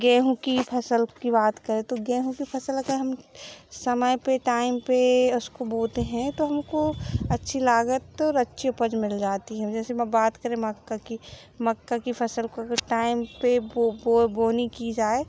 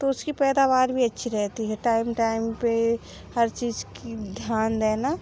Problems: background sounds at intervals